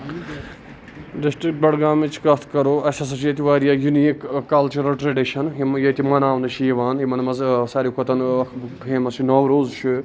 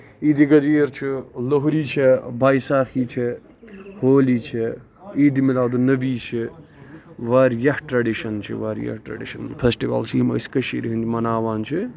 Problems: constant background noise, background conversations at intervals